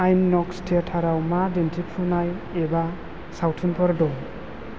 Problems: constant background noise